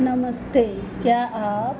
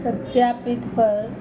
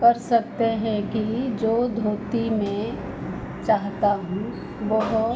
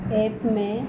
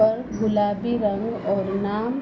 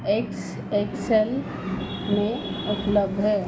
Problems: none marked